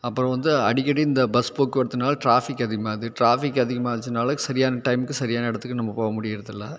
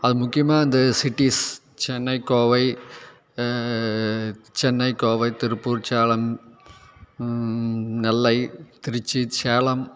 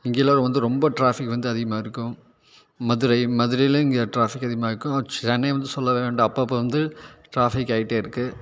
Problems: none marked